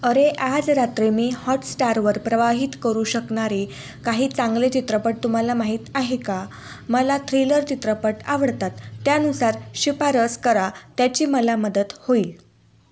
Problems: constant background noise